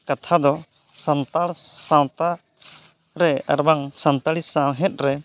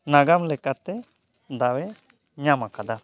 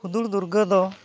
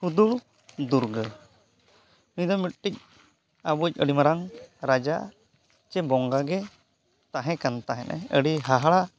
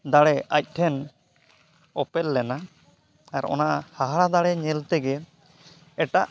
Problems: none marked